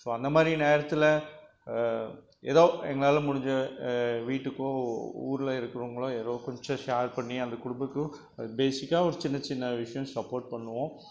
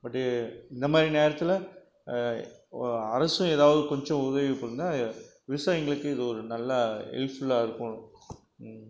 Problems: none marked